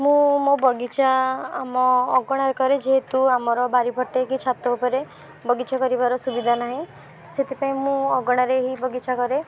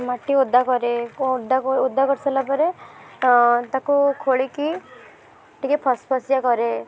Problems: background sounds at intervals, background conversations at intervals